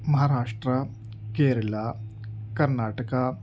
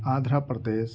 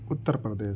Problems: constant background noise